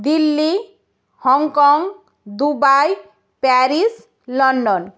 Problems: none marked